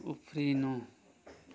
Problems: constant background noise